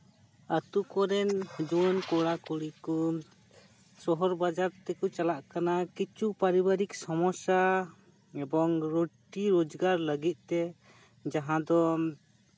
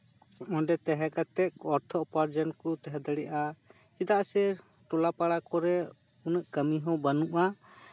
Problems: background sounds at intervals